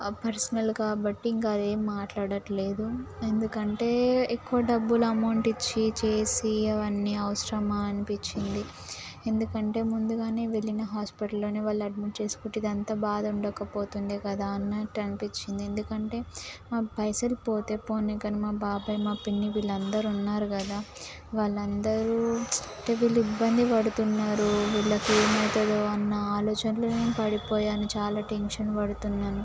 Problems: constant background noise